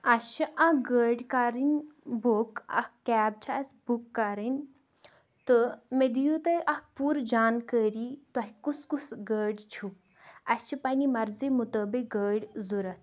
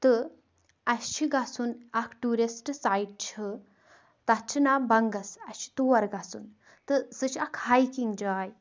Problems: background sounds at intervals